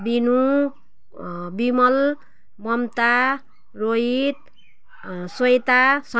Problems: background sounds at intervals